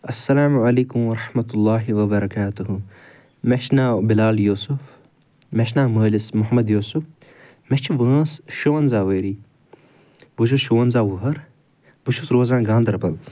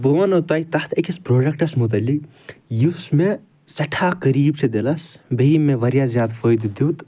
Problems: none marked